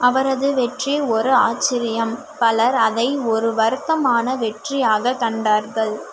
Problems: constant background noise